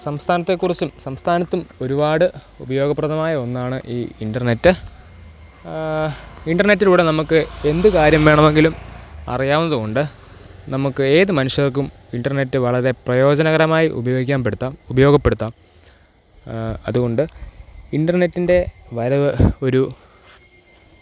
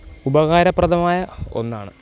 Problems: constant background noise, low volume